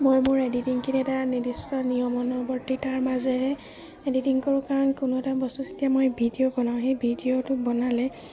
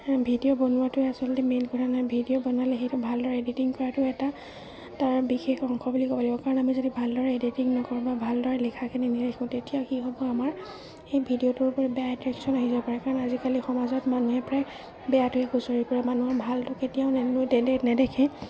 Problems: constant background noise, low volume